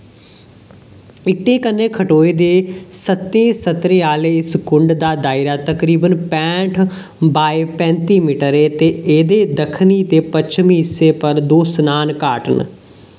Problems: none marked